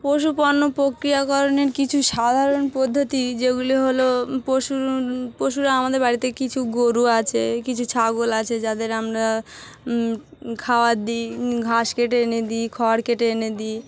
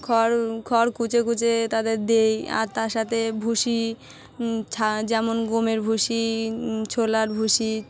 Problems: none marked